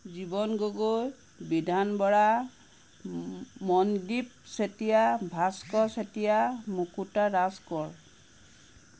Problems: constant background noise